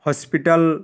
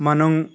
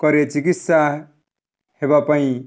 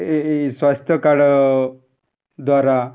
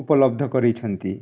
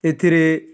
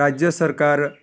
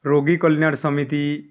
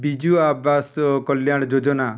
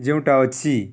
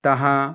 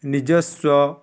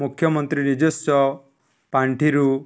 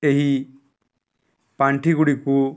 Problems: none marked